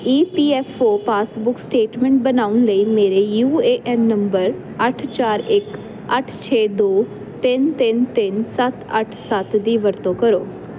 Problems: constant background noise